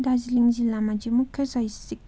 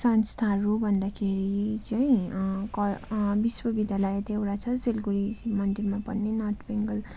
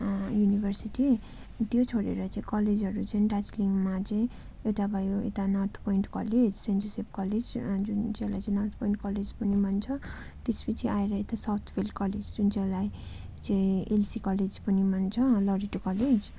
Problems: continuous background conversations